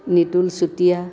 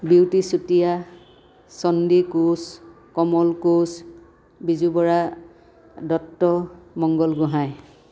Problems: background sounds at intervals